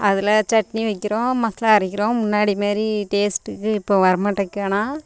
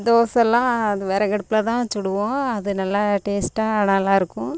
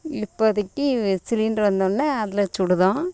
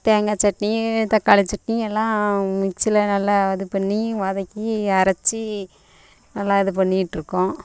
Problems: constant background noise